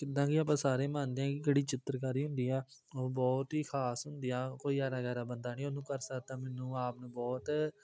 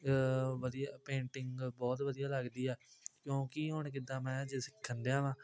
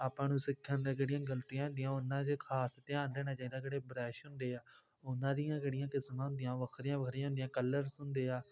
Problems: constant background noise